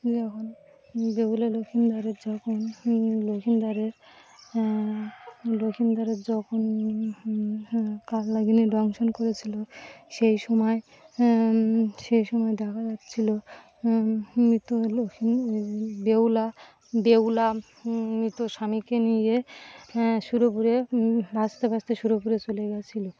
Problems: constant background noise, background conversations at intervals